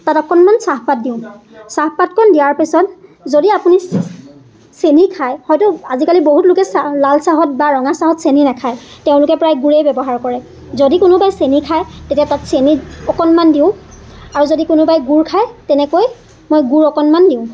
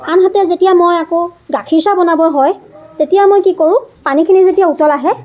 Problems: constant background noise, continuous background conversations